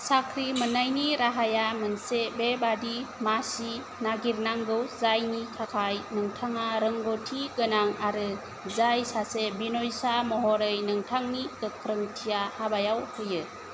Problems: constant background noise